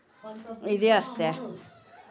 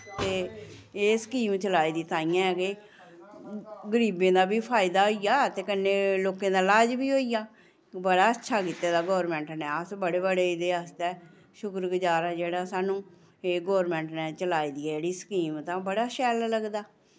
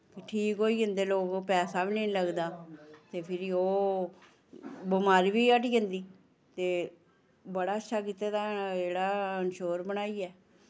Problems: none marked